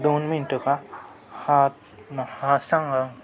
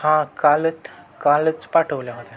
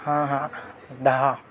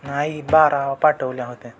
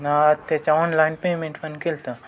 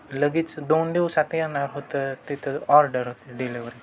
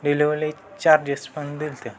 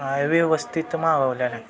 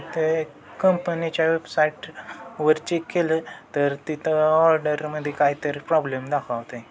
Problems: constant background noise, continuous background conversations